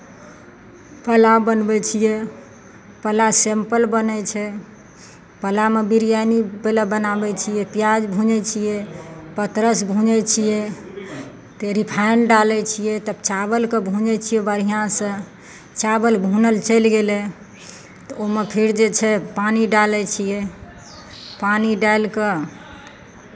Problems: none marked